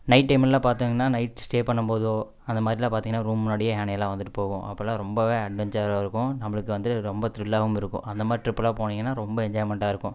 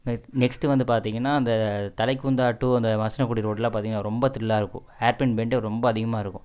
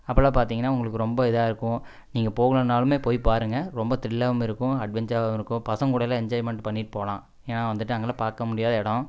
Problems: none marked